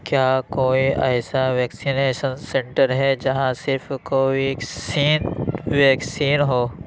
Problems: none marked